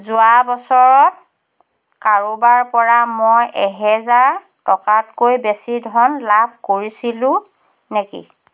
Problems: constant background noise